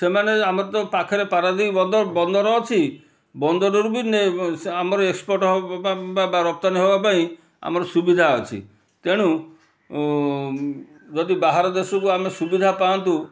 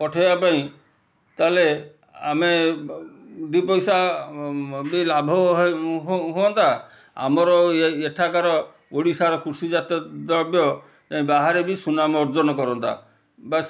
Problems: none marked